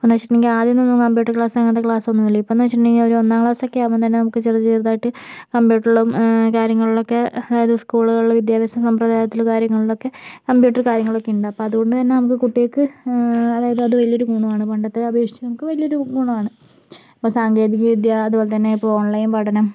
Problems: background sounds at intervals